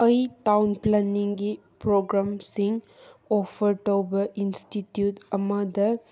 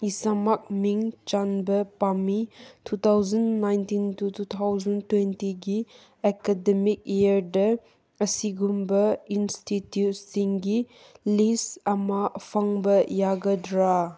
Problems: none marked